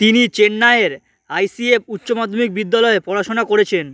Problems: constant background noise